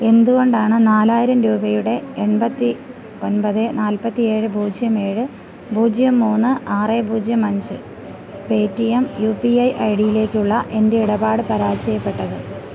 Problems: constant background noise, low volume